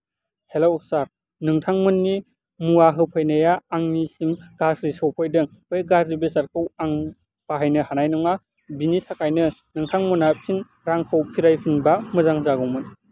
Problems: constant background noise